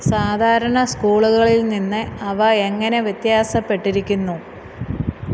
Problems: constant background noise